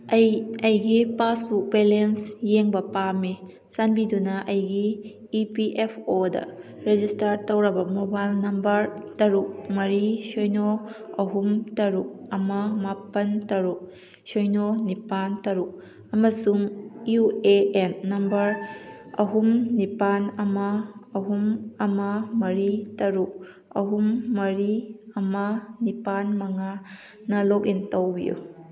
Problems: background sounds at intervals